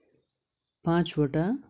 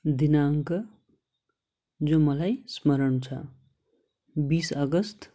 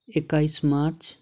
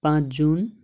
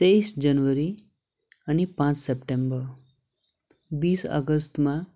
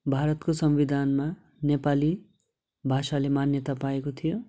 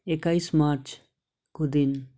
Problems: none marked